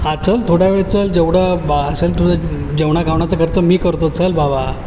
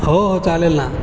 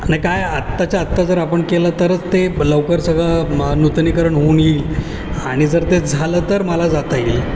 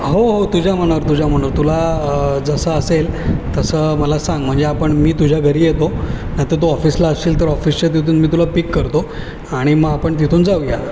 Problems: background sounds at intervals